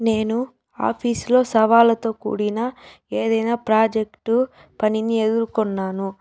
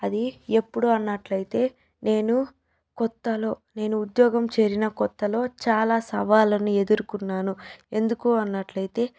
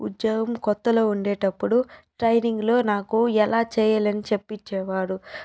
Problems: background sounds at intervals